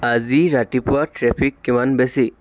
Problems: constant background noise